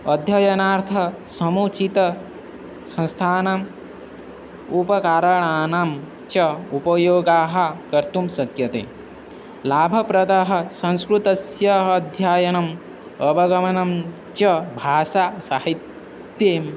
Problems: constant background noise